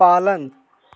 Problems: constant background noise